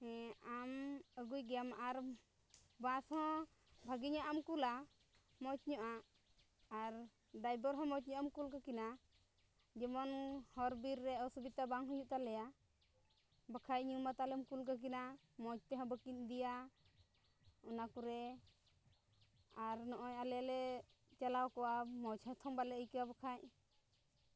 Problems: low volume